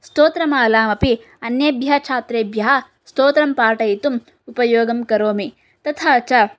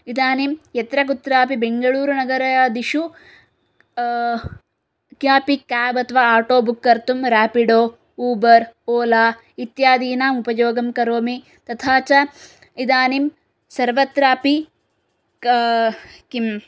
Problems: none marked